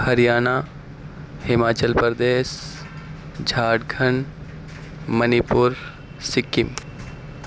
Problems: constant background noise